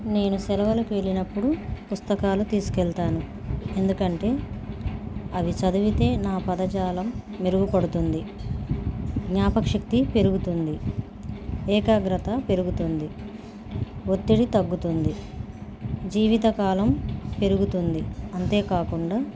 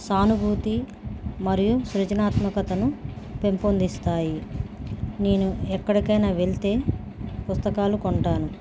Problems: background sounds at intervals